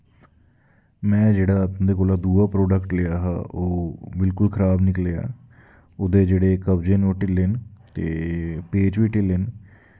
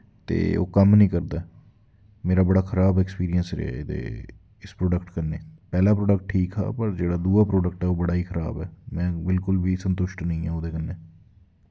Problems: constant background noise